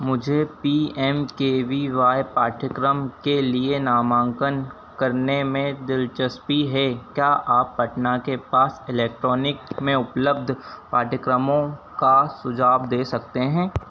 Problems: constant background noise